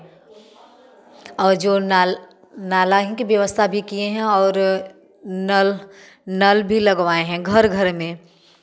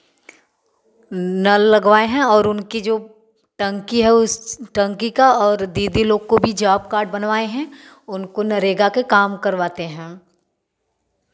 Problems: none marked